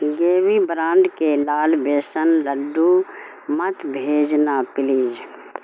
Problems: constant background noise